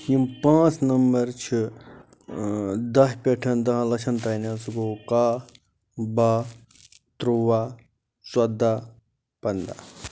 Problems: background sounds at intervals